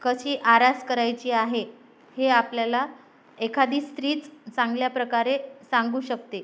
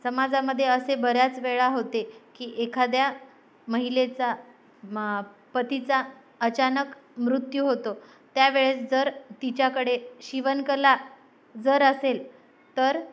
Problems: none marked